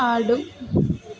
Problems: none marked